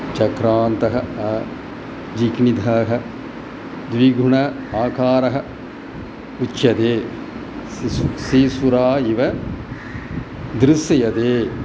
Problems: none marked